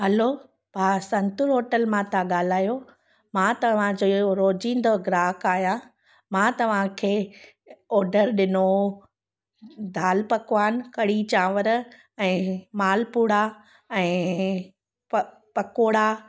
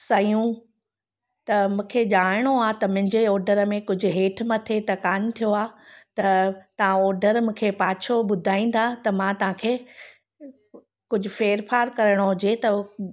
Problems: none marked